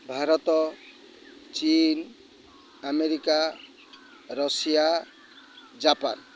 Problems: constant background noise